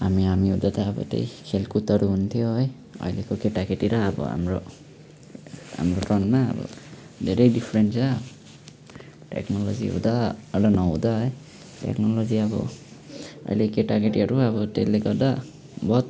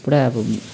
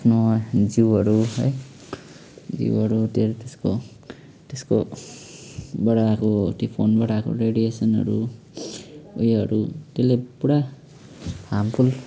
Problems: none marked